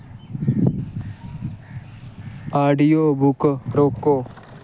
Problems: none marked